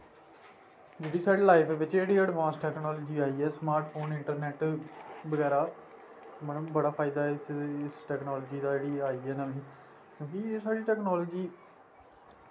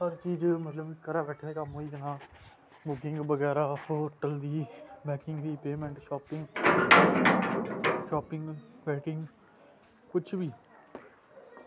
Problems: constant background noise